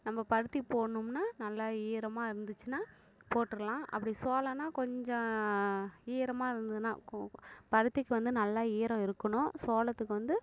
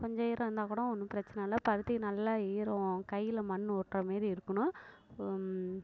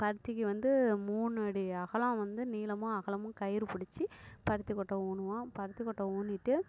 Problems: background conversations at intervals, low volume